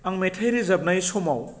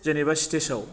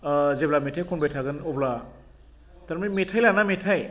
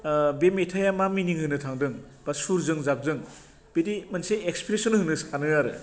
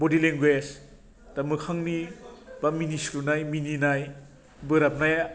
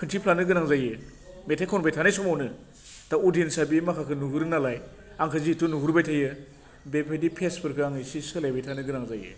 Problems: none marked